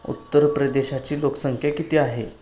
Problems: none marked